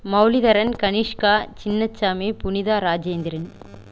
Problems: background sounds at intervals